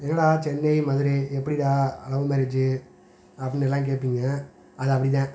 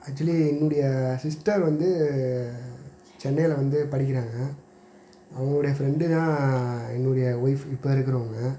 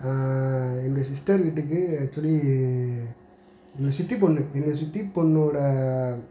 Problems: none marked